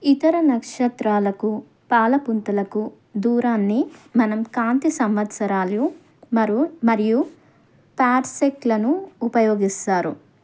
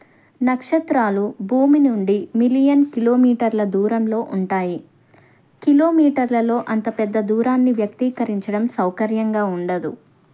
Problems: none marked